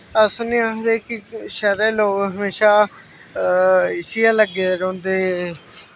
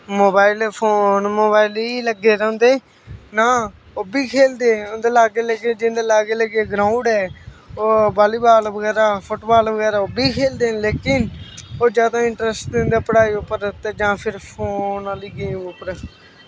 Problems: constant background noise